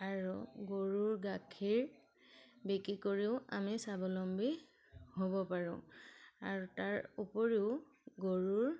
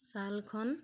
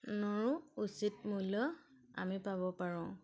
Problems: none marked